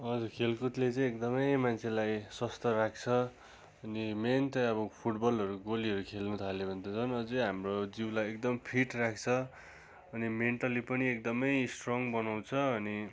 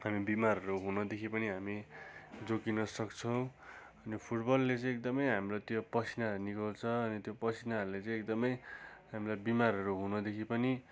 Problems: constant background noise